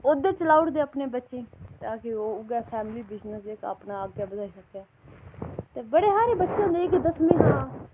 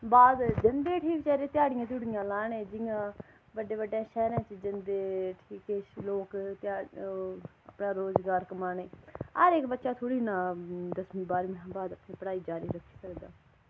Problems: none marked